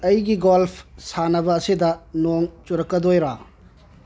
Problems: low volume